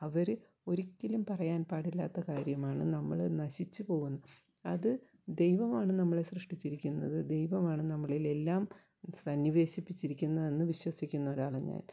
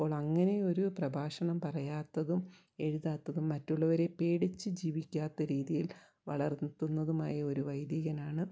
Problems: low volume